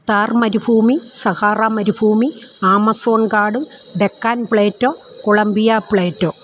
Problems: constant background noise